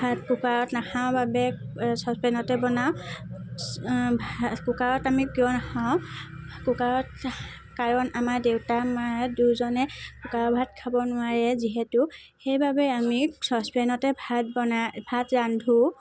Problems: constant background noise, background conversations at intervals